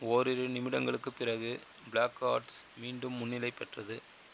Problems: constant background noise